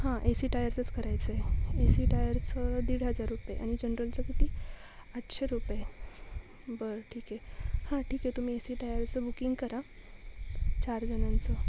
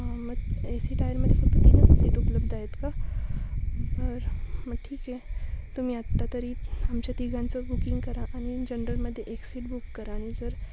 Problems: constant background noise, background conversations at intervals